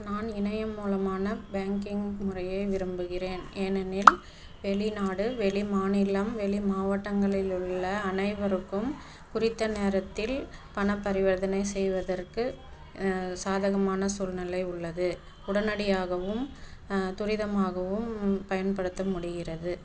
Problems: background sounds at intervals